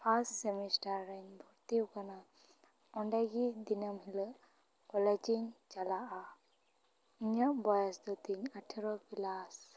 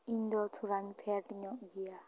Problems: background conversations at intervals